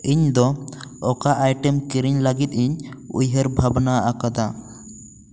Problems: constant background noise, echo